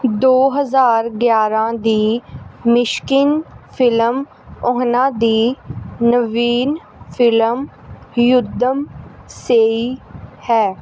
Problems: background sounds at intervals